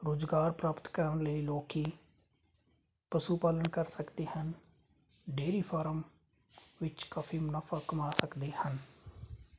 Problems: constant background noise